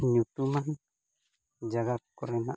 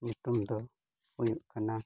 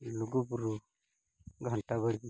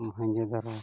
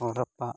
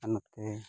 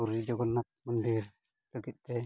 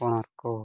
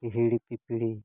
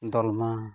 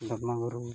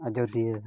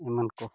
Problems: background sounds at intervals